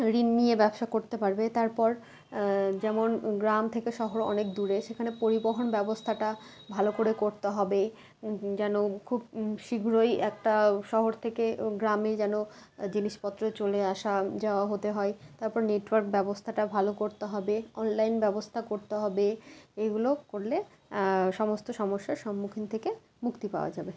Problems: background sounds at intervals